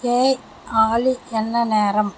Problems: constant background noise